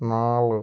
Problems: none marked